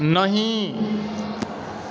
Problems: background conversations at intervals